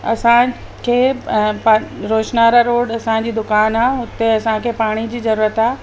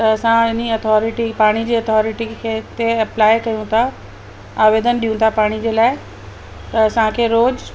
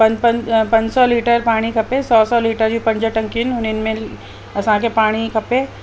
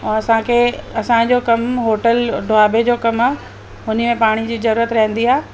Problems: constant background noise, echo